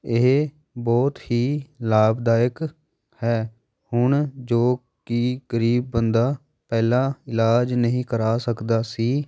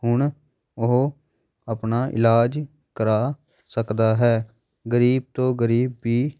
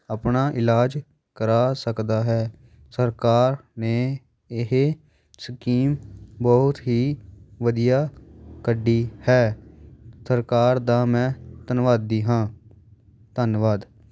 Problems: background sounds at intervals, background conversations at intervals